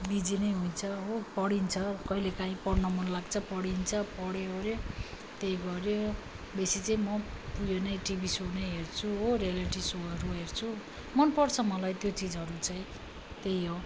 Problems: none marked